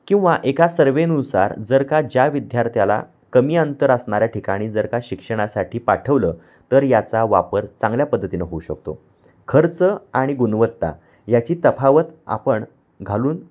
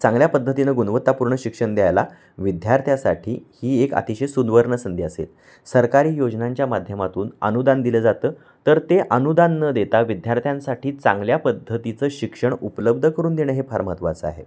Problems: background sounds at intervals